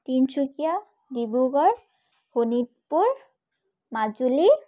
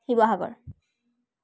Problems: none marked